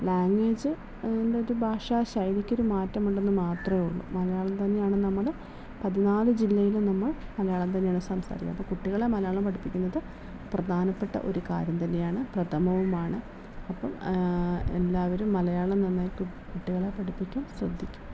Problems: none marked